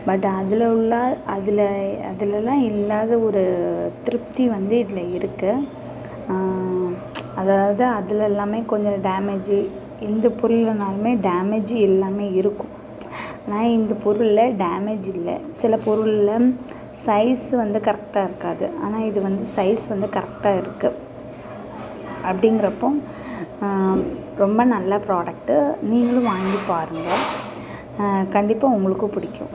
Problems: constant background noise